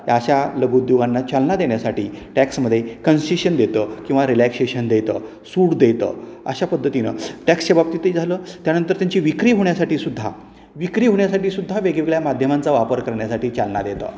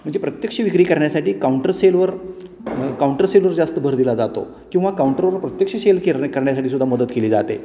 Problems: constant background noise, background conversations at intervals